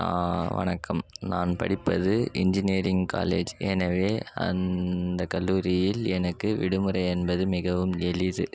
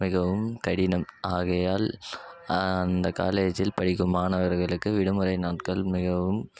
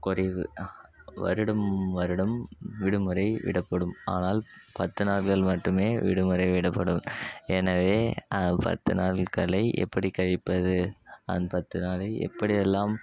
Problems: none marked